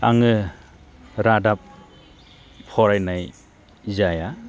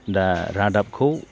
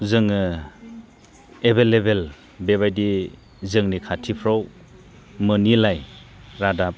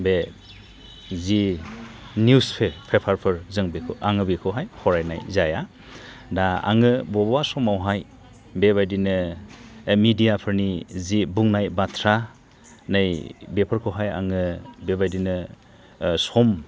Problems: none marked